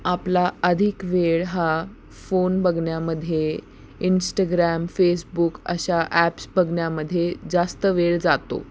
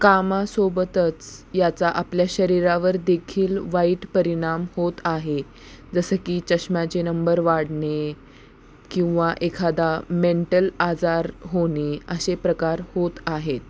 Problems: constant background noise, continuous background conversations